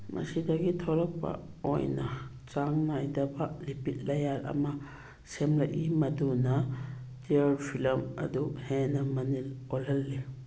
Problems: background sounds at intervals